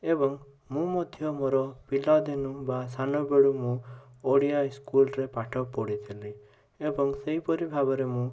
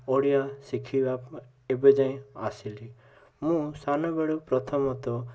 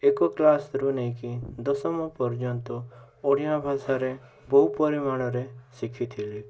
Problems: constant background noise